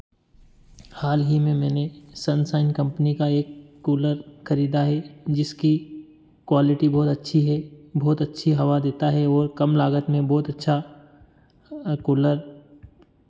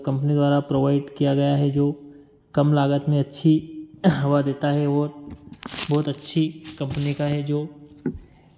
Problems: constant background noise